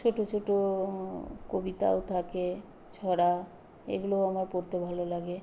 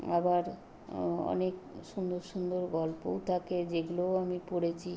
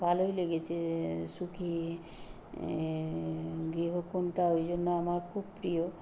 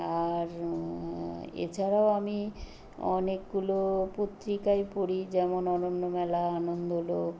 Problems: background sounds at intervals